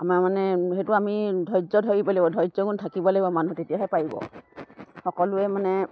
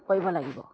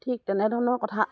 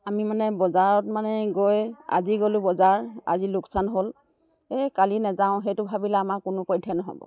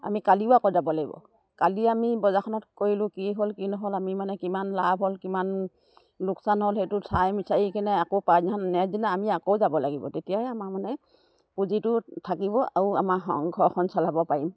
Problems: none marked